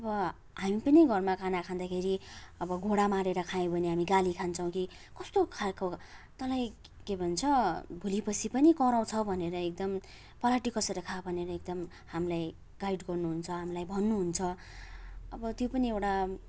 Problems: constant background noise